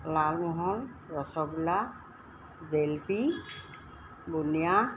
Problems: constant background noise